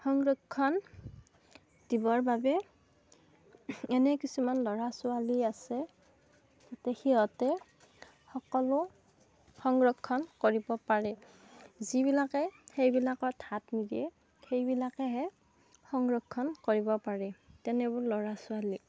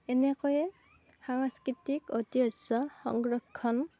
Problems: background sounds at intervals